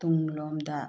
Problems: low volume